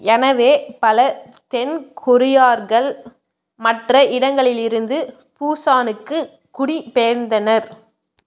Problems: none marked